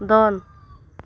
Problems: none marked